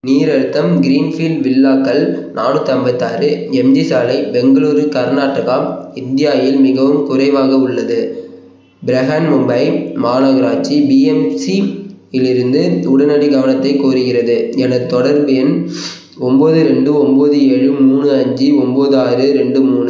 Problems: background sounds at intervals